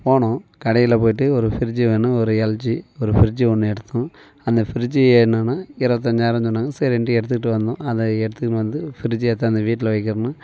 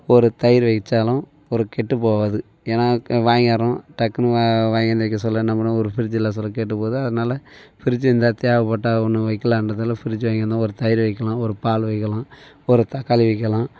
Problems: none marked